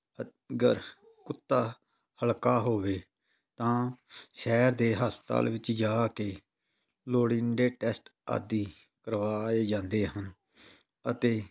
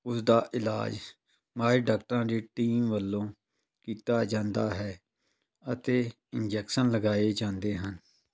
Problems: none marked